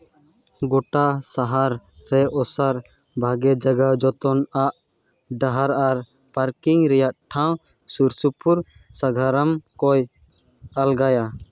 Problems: none marked